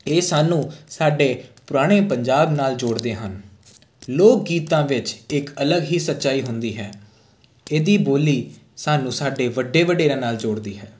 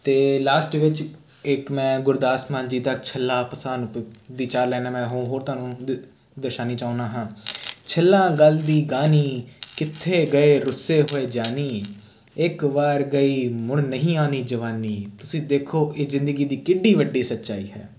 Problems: none marked